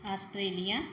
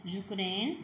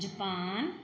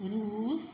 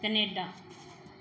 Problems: background sounds at intervals